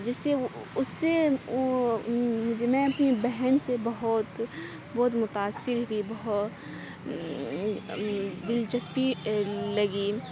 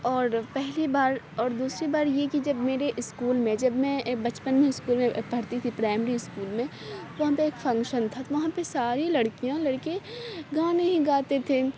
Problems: constant background noise, low volume